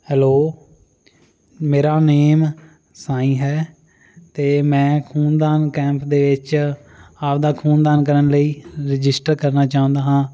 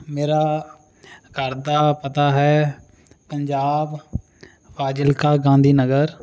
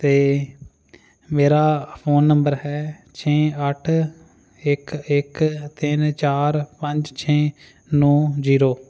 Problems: constant background noise